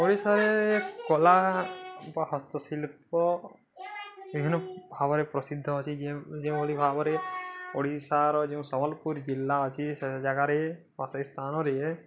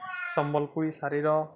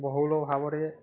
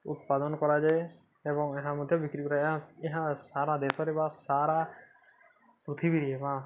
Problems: constant background noise, continuous background conversations